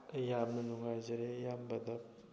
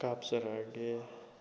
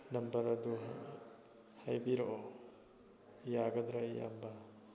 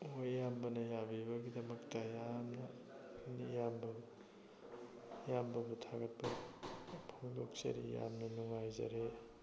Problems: background sounds at intervals, continuous background conversations